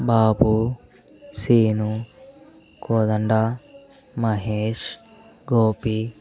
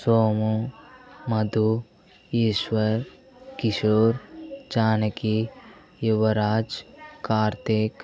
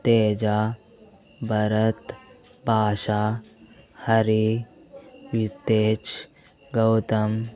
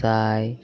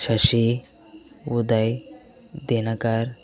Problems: continuous background conversations